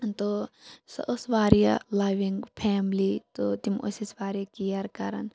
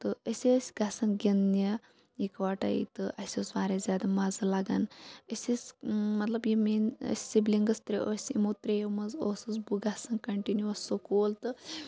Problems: constant background noise